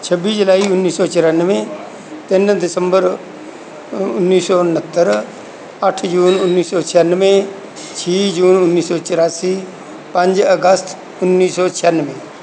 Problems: constant background noise